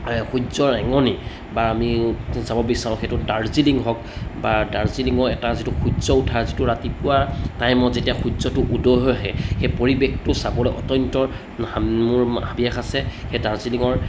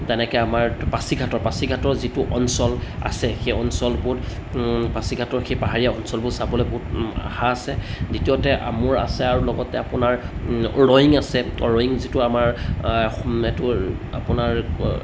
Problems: constant background noise